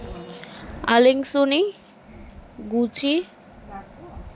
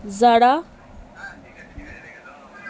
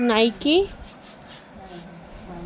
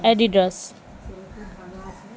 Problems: none marked